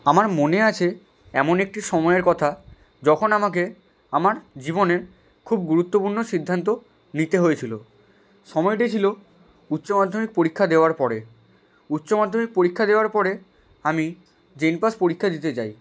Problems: background sounds at intervals